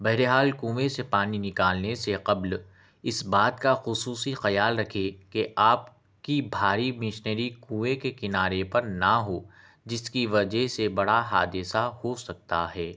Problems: none marked